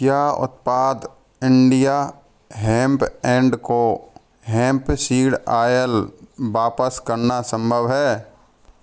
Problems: none marked